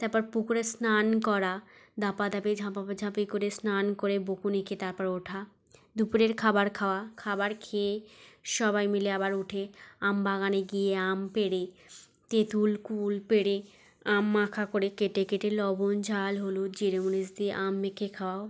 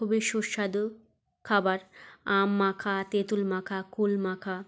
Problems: background sounds at intervals, background conversations at intervals